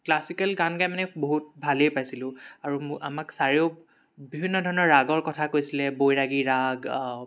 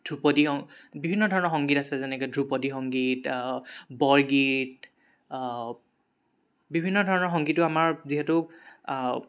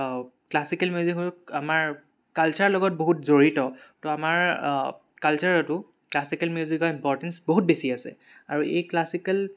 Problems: none marked